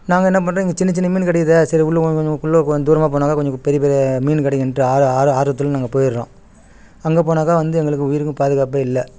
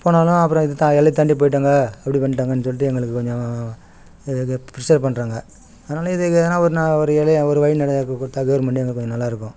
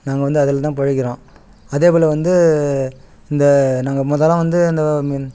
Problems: background sounds at intervals